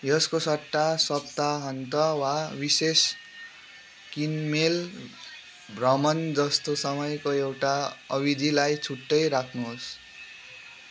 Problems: constant background noise